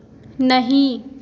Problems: constant background noise, echo